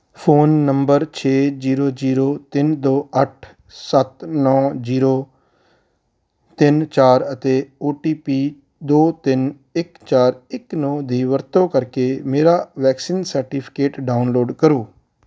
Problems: none marked